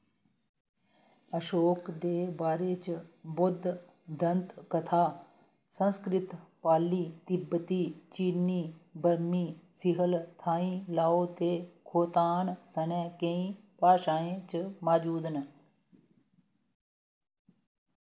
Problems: none marked